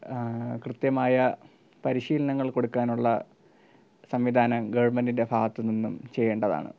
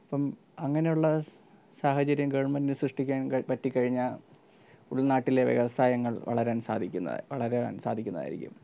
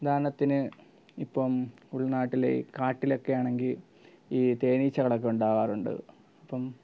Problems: low volume